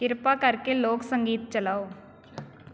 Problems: constant background noise